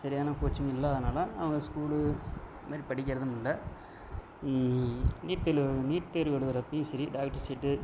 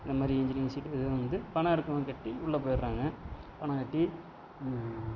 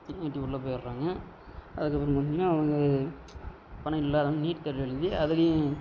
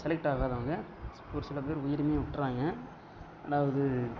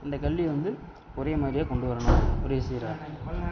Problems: background sounds at intervals, background conversations at intervals